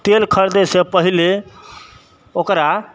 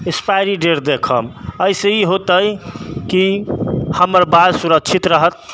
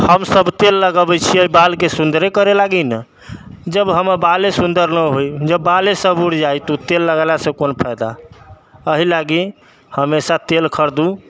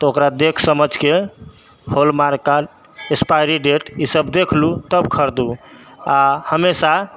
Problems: none marked